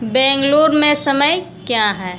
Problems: constant background noise